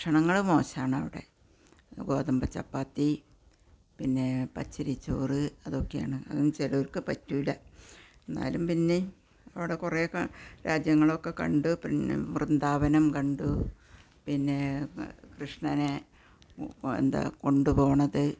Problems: none marked